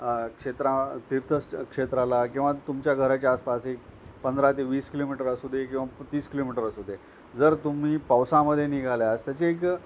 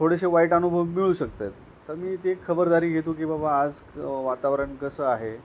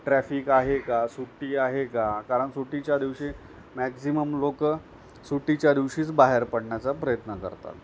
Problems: none marked